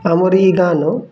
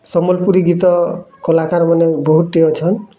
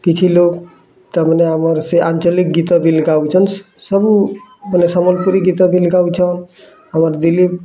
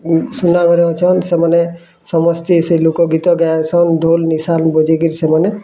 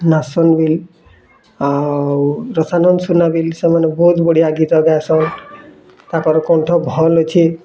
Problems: constant background noise, continuous background conversations